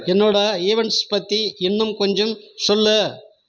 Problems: constant background noise